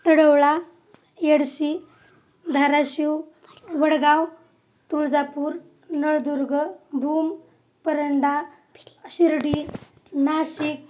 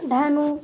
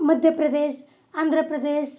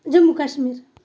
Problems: none marked